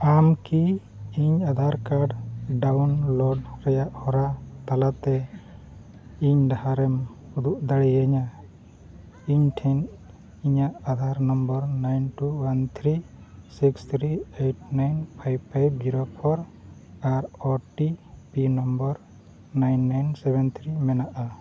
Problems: background sounds at intervals